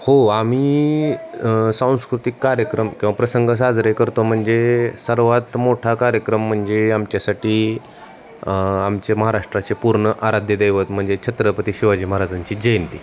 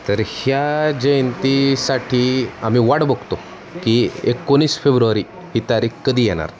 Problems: none marked